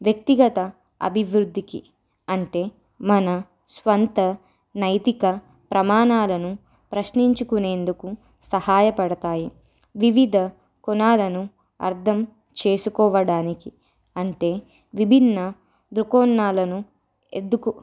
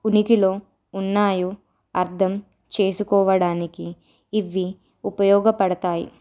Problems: none marked